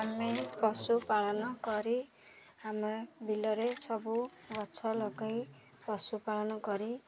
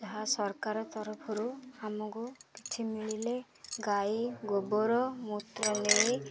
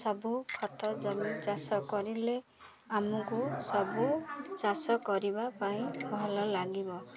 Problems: constant background noise, continuous background conversations